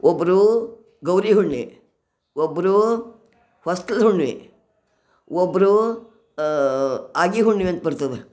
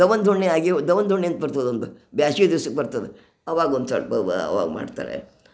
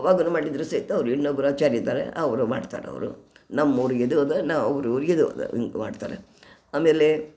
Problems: none marked